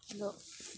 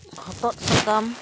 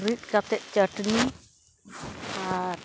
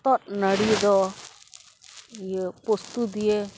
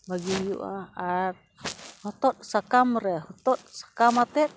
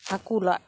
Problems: constant background noise